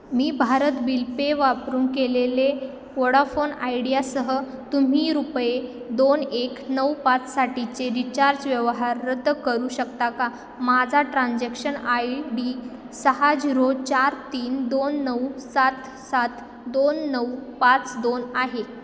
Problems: constant background noise, echo